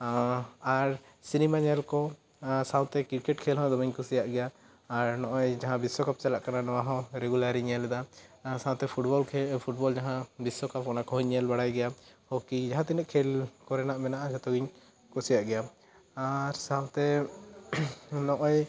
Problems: none marked